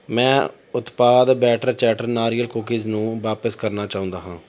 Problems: none marked